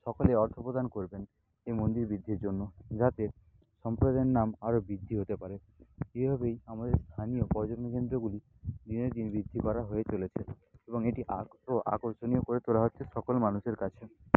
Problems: constant background noise, low volume